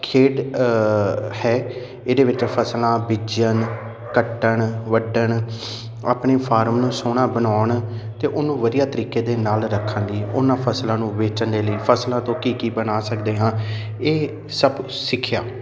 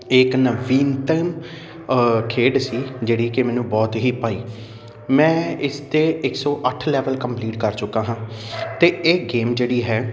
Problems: constant background noise